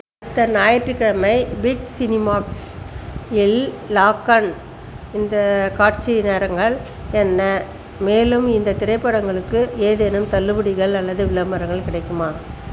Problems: constant background noise